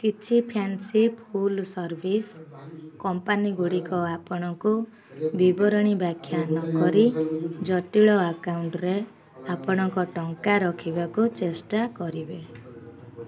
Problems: constant background noise